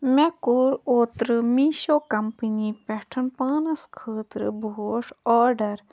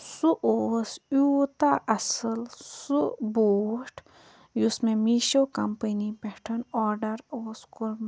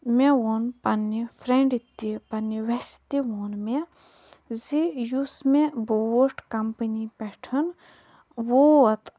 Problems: background sounds at intervals, low volume